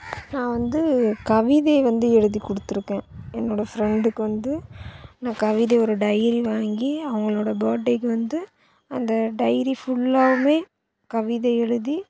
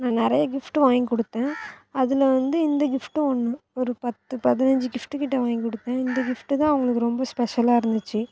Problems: none marked